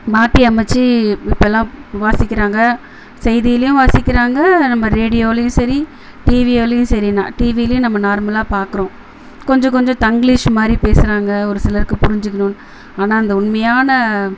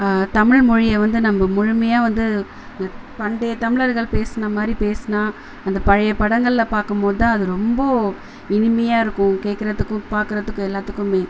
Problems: none marked